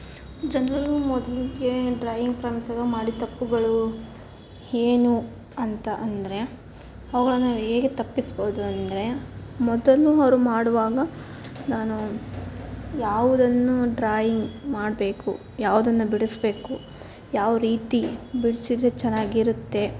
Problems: constant background noise